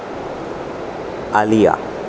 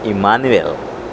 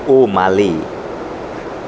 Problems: constant background noise